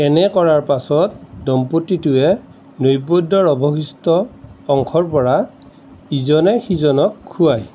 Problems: constant background noise